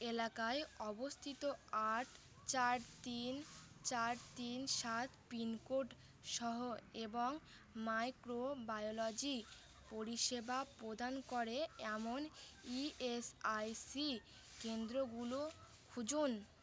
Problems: constant background noise